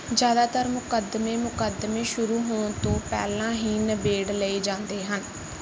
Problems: background sounds at intervals